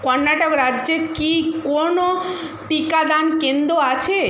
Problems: constant background noise